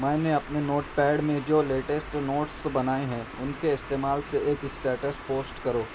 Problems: constant background noise